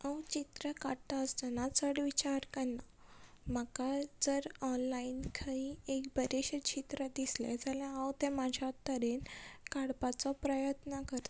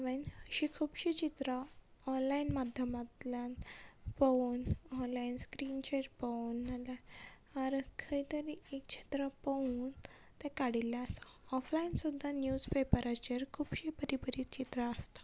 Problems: constant background noise